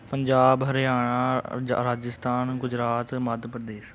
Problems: none marked